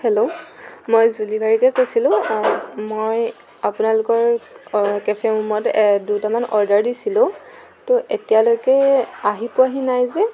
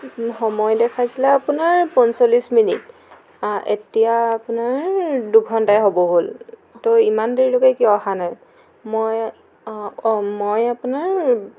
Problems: constant background noise